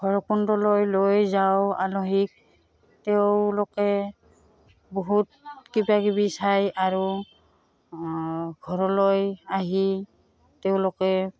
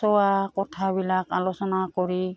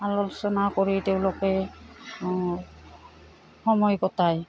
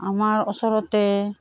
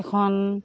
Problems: background sounds at intervals